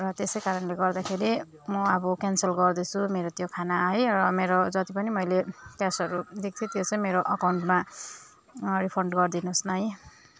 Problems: continuous background conversations